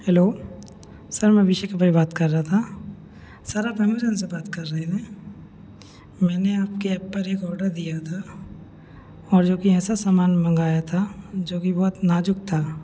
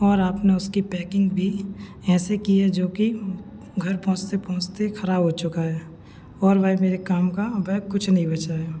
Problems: background conversations at intervals